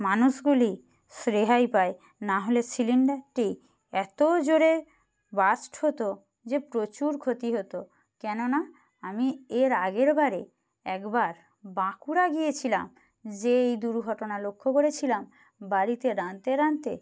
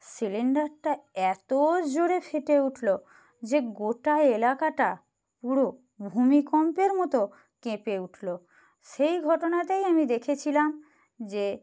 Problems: background sounds at intervals